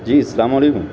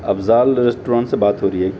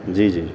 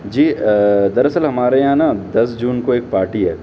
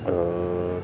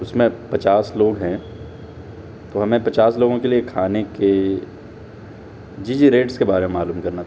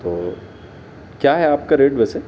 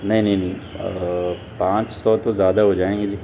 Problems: background sounds at intervals